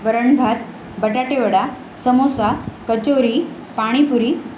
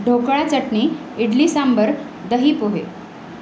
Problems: constant background noise